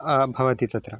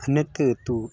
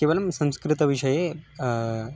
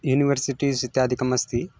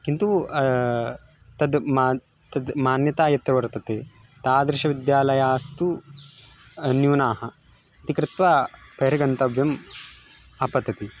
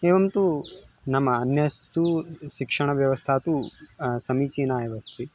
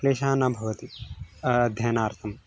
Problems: constant background noise